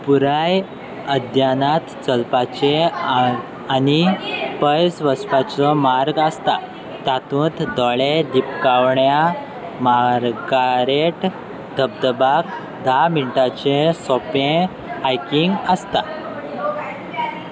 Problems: constant background noise, continuous background conversations